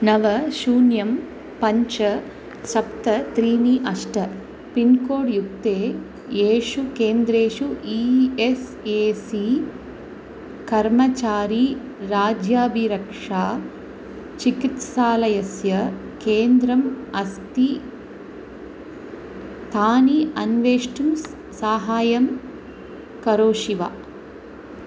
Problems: constant background noise